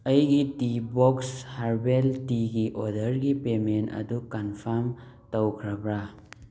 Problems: background sounds at intervals